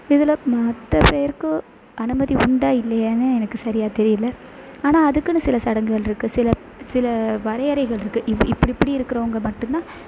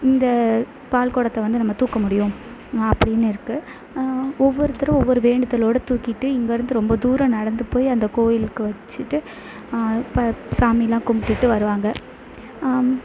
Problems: constant background noise